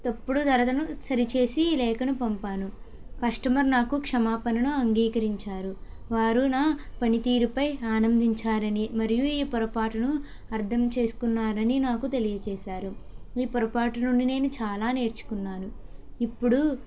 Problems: none marked